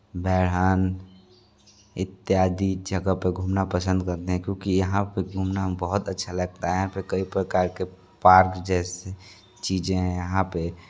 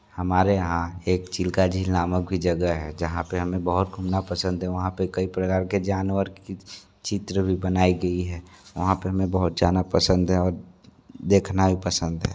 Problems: constant background noise, continuous background conversations